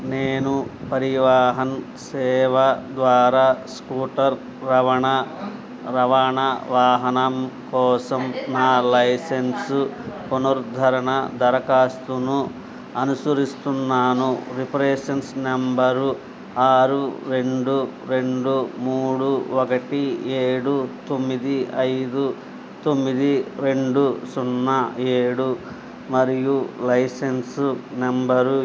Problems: constant background noise